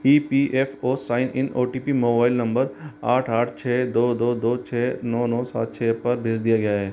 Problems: constant background noise